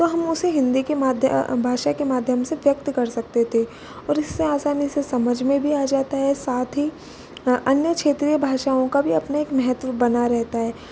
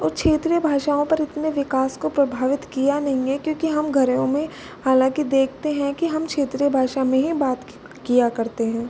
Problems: constant background noise